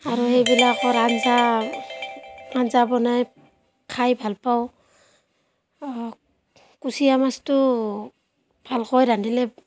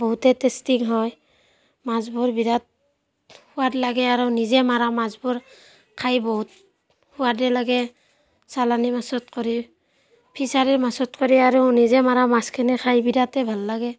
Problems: background sounds at intervals, background conversations at intervals